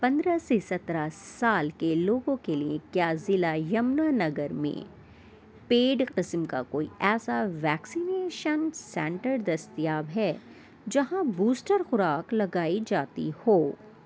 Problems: constant background noise